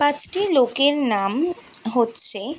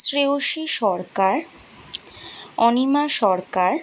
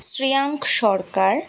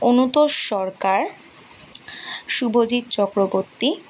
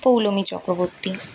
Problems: constant background noise